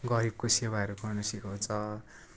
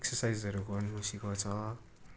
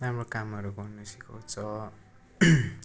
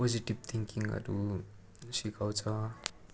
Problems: none marked